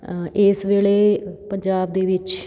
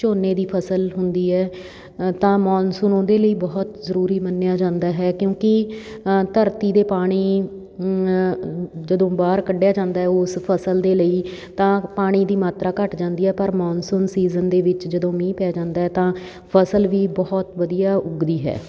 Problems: background sounds at intervals, background conversations at intervals